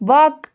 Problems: none marked